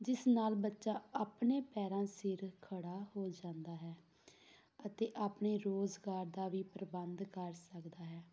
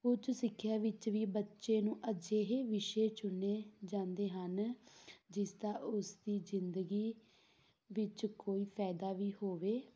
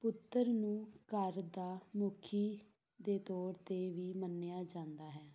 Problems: background sounds at intervals